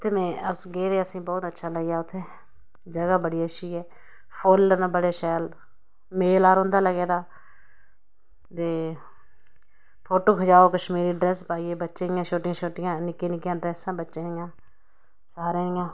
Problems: none marked